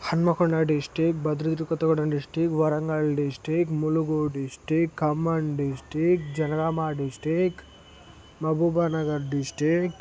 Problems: constant background noise